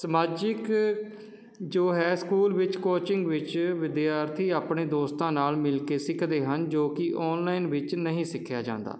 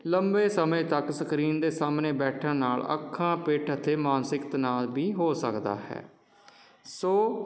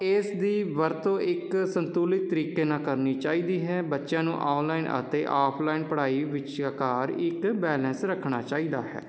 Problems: none marked